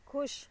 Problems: background sounds at intervals